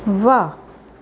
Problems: none marked